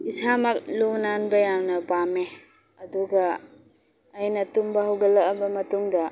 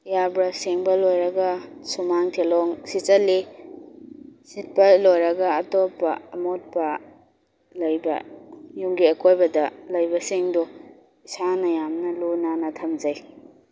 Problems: none marked